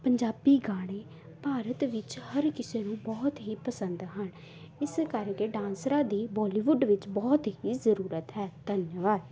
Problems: background conversations at intervals